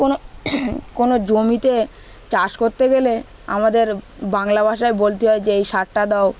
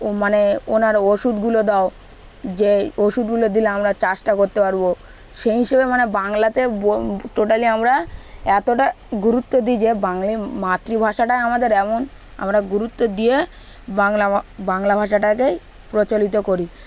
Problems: none marked